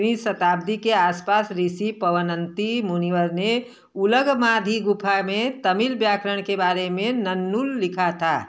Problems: constant background noise